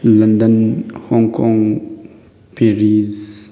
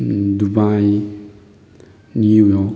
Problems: none marked